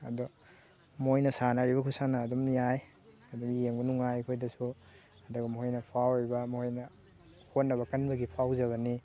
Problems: constant background noise, background conversations at intervals